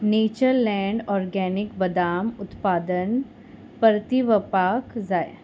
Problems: none marked